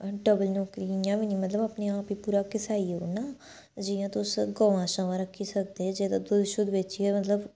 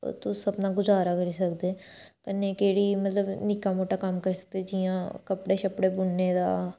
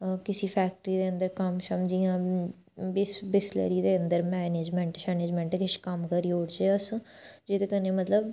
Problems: background sounds at intervals